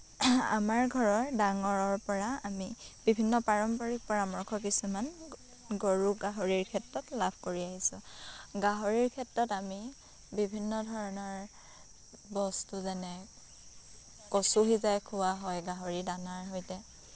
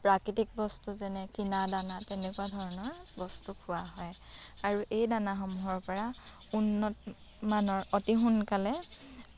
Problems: constant background noise